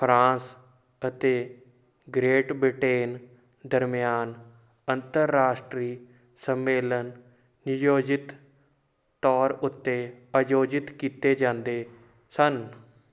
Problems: none marked